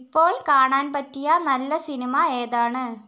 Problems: none marked